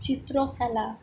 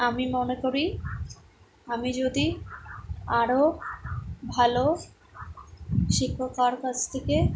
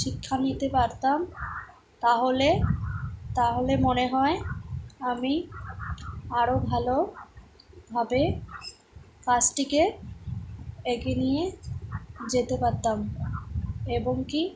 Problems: background sounds at intervals